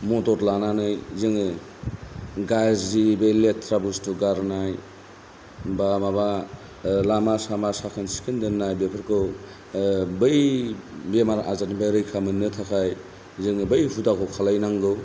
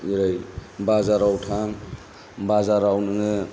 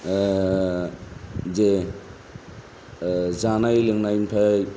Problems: none marked